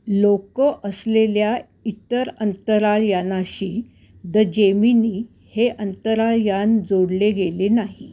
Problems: background sounds at intervals